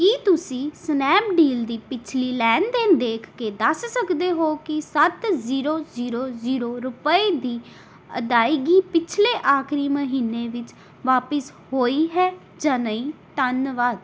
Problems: background sounds at intervals